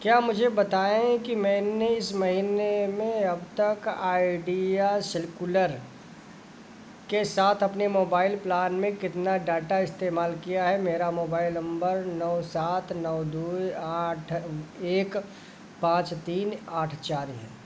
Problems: background sounds at intervals